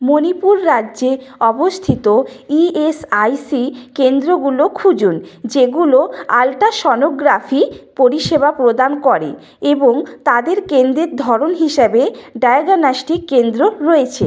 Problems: background conversations at intervals